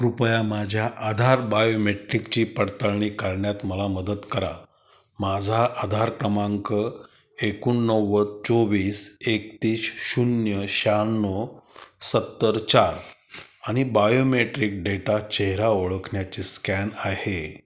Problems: none marked